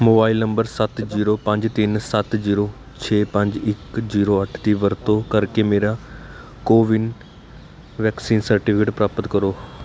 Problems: constant background noise